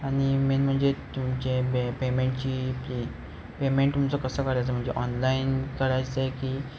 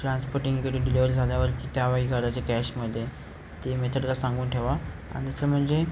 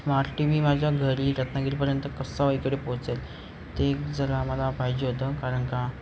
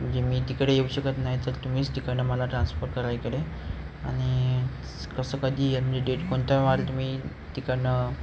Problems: none marked